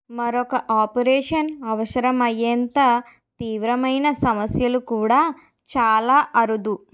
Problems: background sounds at intervals